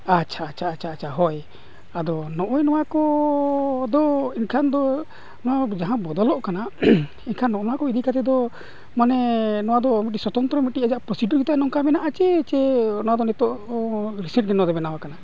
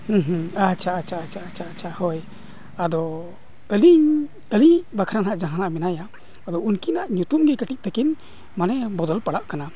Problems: background sounds at intervals, continuous background conversations